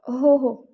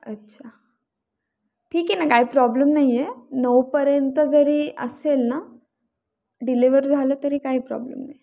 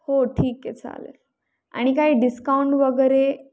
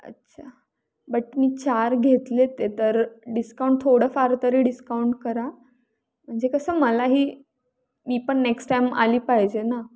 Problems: none marked